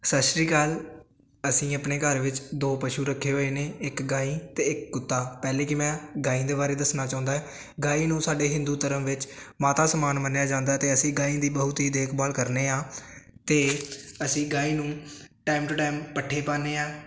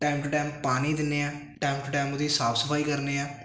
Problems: constant background noise